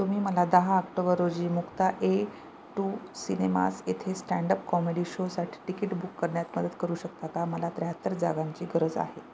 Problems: none marked